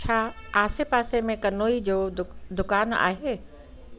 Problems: constant background noise